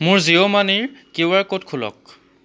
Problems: background sounds at intervals